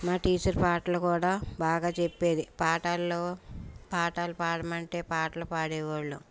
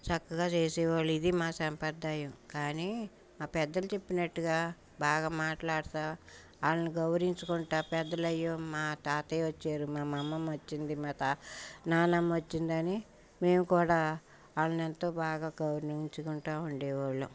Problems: background sounds at intervals, background conversations at intervals